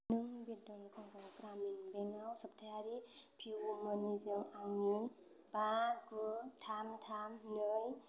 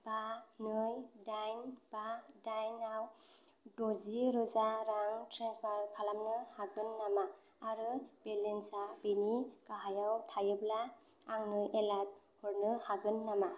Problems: constant background noise